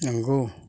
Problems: none marked